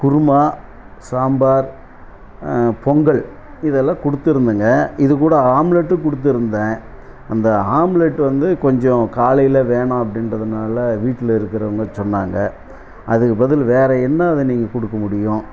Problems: constant background noise